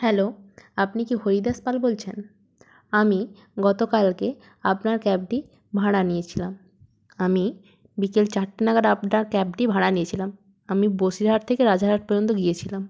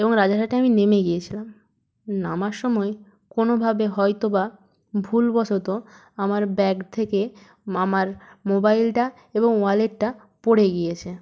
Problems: none marked